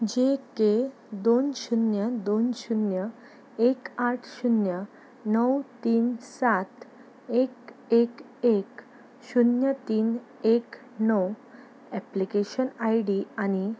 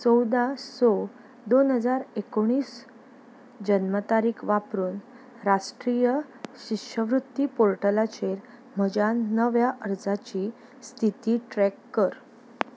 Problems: background sounds at intervals